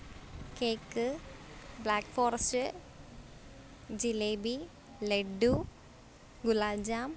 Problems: none marked